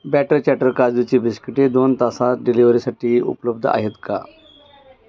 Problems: constant background noise, background conversations at intervals